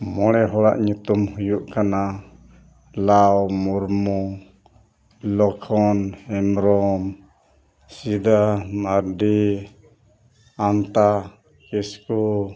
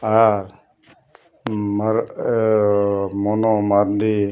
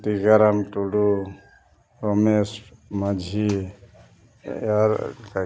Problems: background sounds at intervals, continuous background conversations